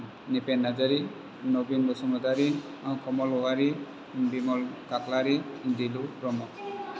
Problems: constant background noise